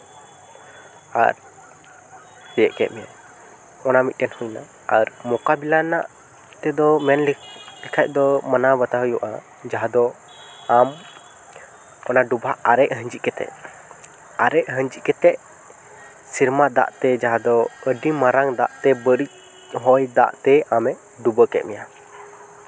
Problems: constant background noise, background conversations at intervals